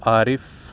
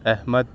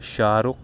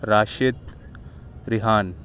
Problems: background sounds at intervals